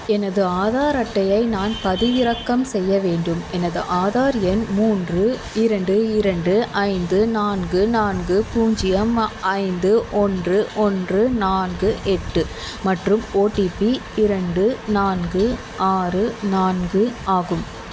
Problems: constant background noise